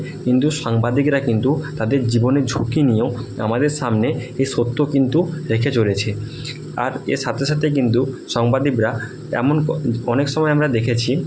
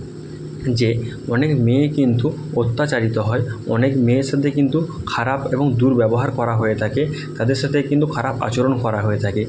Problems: none marked